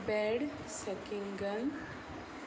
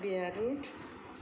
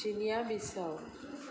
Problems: none marked